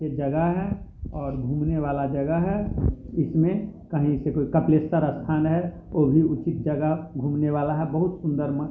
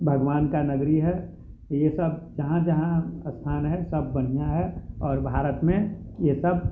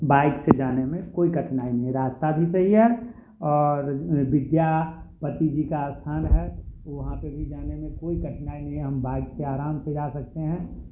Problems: constant background noise, continuous background conversations